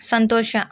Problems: none marked